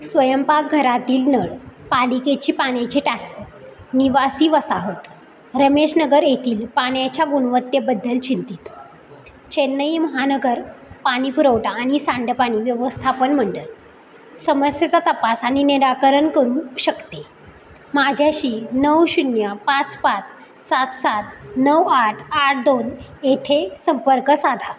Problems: none marked